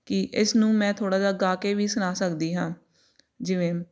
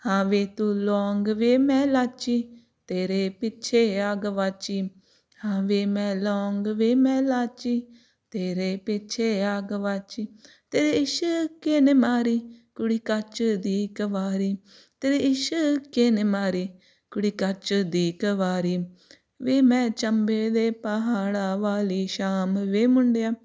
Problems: background sounds at intervals